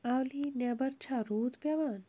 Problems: background sounds at intervals